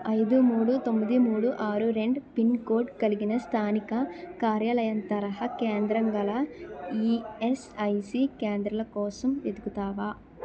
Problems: continuous background conversations